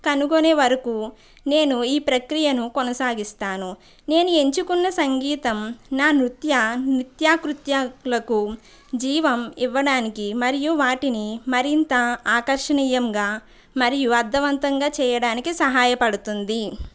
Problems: none marked